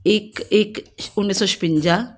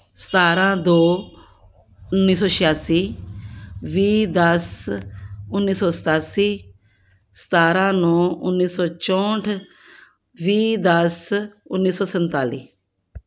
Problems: background sounds at intervals